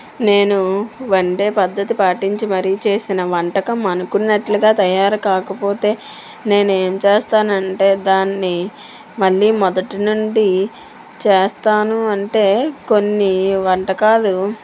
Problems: constant background noise